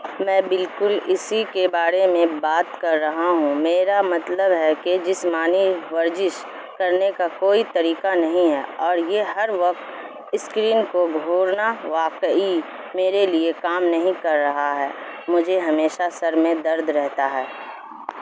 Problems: constant background noise